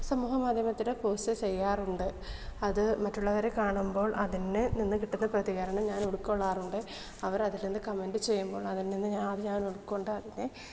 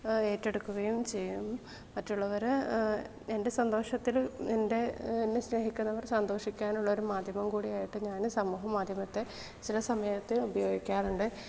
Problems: low volume